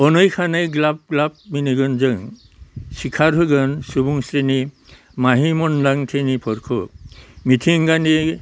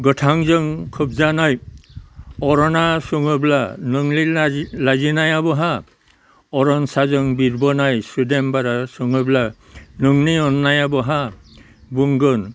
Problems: constant background noise